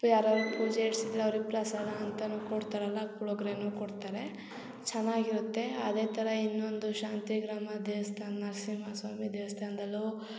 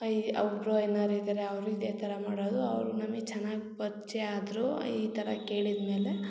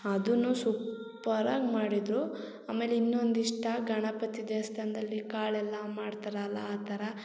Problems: none marked